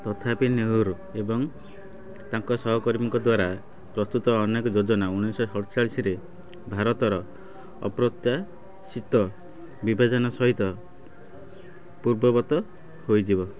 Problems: constant background noise, continuous background conversations